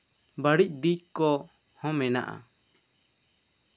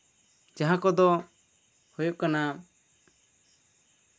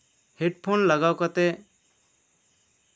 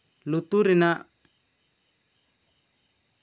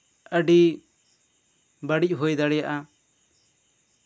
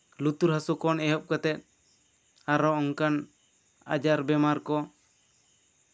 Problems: none marked